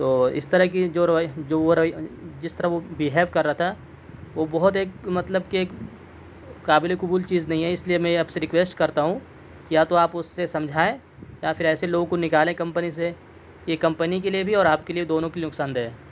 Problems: none marked